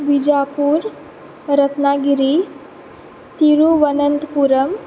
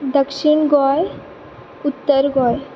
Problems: constant background noise